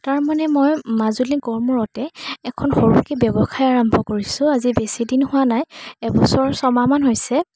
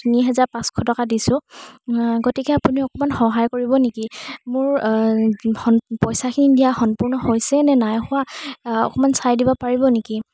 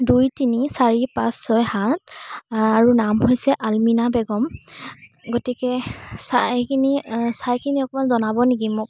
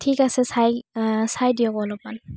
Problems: constant background noise